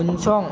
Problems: low volume